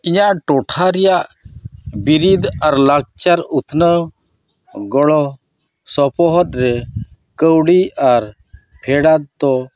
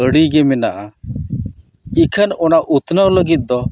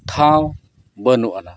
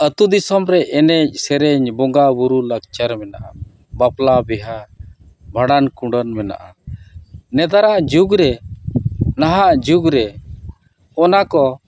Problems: background conversations at intervals